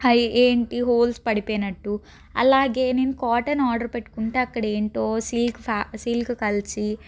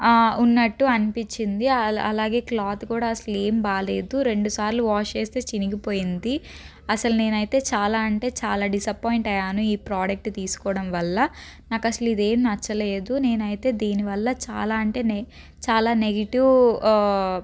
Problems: background sounds at intervals